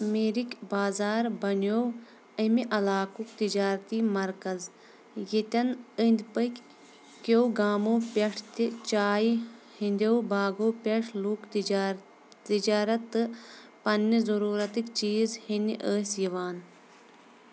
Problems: constant background noise